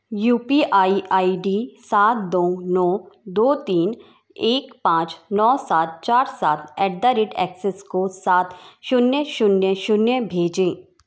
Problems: none marked